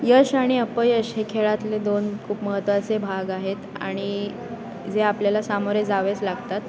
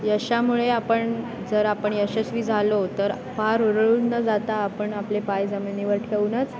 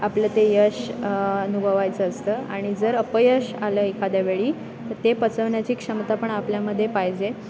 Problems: constant background noise, continuous background conversations